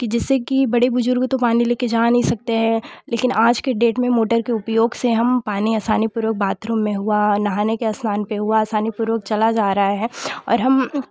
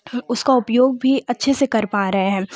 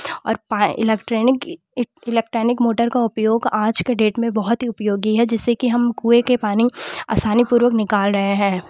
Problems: constant background noise